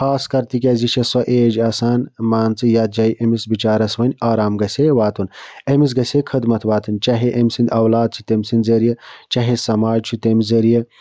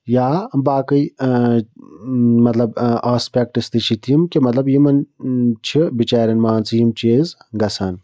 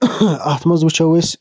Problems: none marked